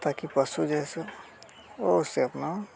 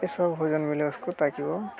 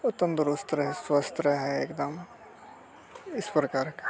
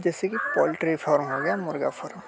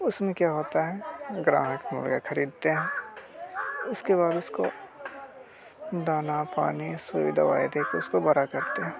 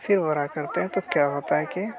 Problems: constant background noise